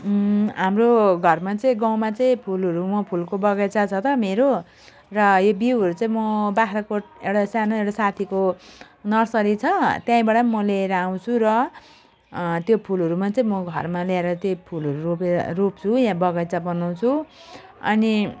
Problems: none marked